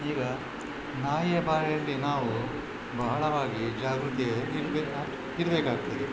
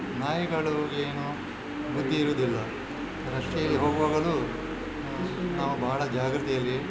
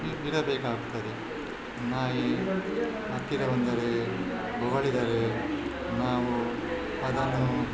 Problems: constant background noise, background conversations at intervals